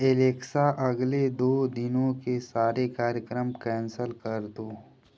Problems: constant background noise